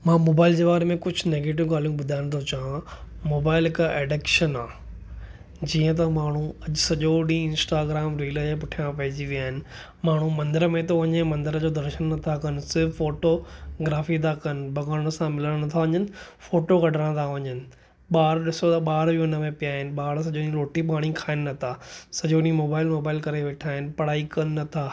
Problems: none marked